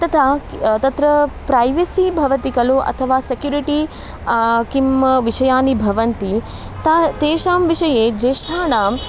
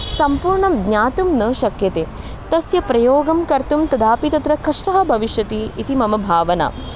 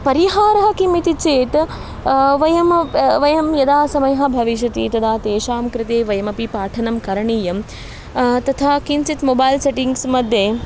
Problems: background sounds at intervals